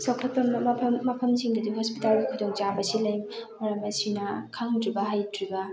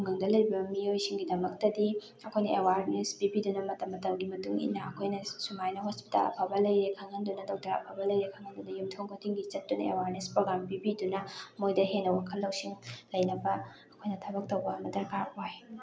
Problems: constant background noise, background conversations at intervals